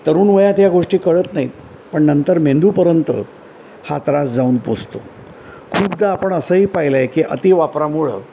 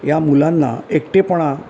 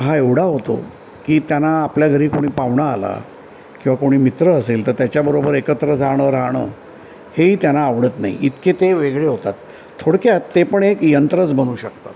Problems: background sounds at intervals